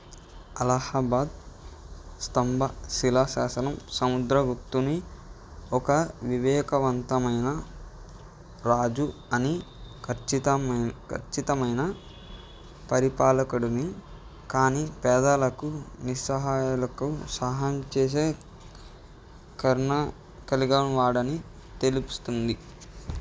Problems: none marked